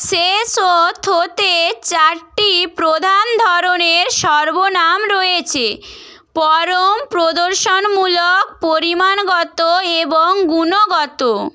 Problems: none marked